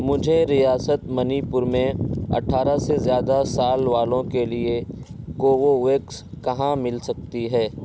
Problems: constant background noise